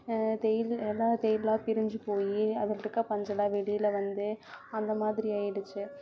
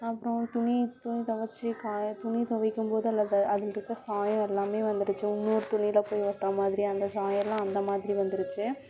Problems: background sounds at intervals, continuous background conversations